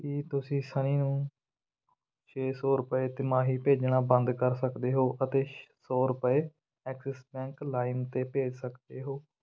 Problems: none marked